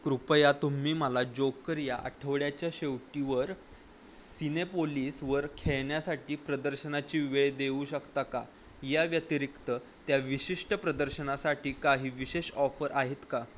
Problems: none marked